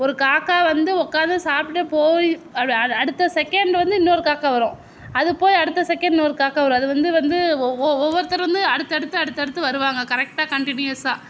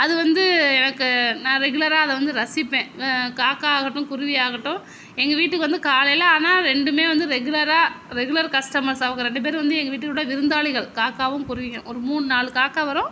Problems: none marked